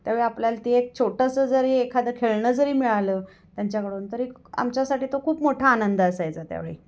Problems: background sounds at intervals, echo